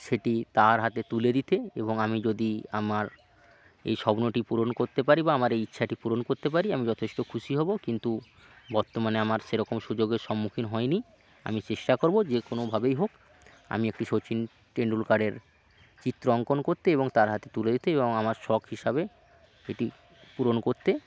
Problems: constant background noise, continuous background conversations